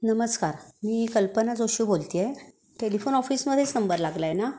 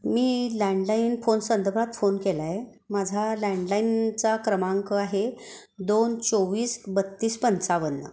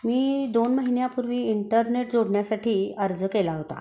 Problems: none marked